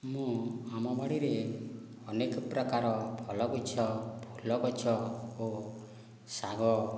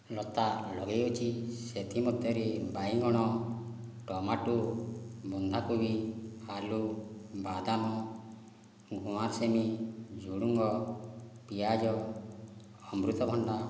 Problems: low volume